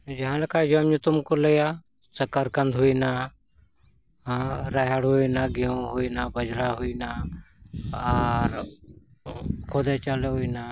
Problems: none marked